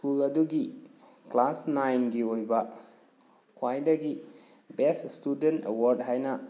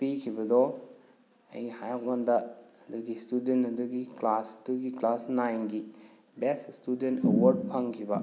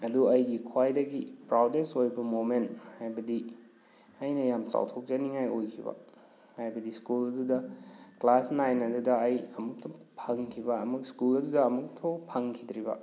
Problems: none marked